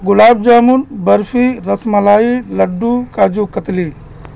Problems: constant background noise